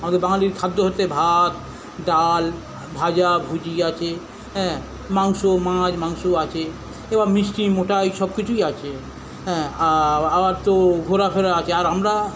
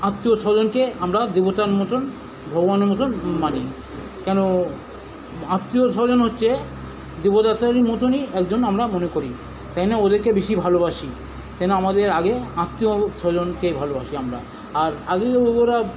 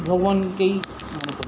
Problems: constant background noise